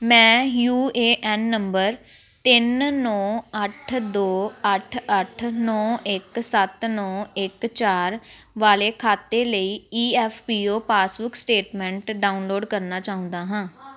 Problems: background conversations at intervals